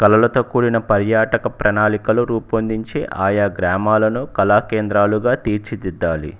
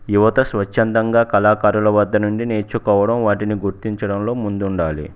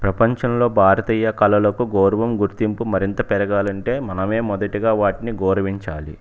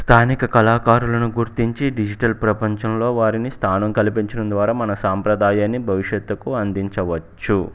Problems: none marked